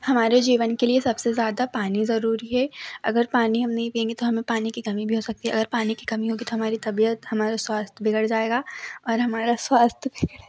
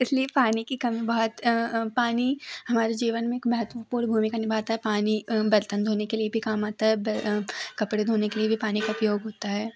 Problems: background sounds at intervals, background conversations at intervals